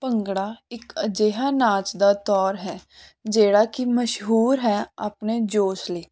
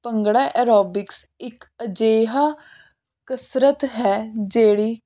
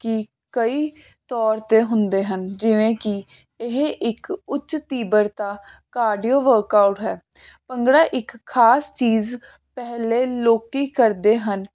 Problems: constant background noise